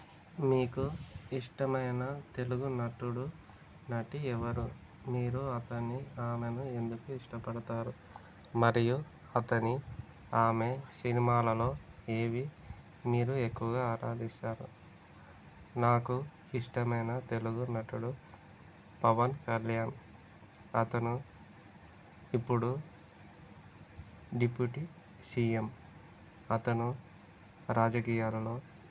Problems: constant background noise